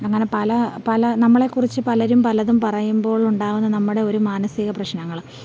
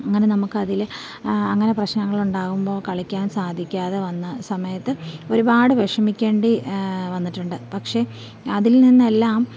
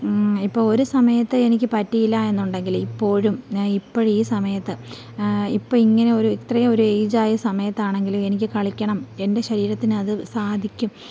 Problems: none marked